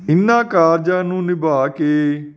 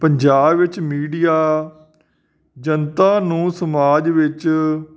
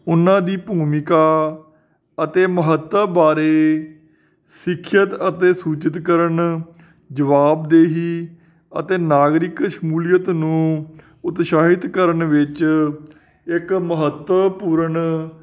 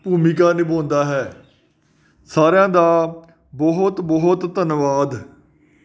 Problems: none marked